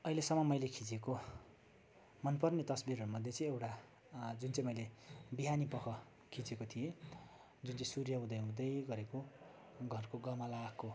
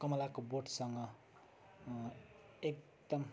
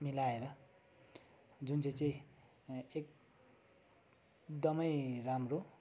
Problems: background sounds at intervals